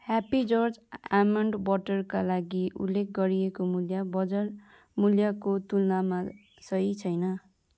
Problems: continuous background conversations